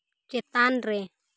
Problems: constant background noise